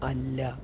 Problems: none marked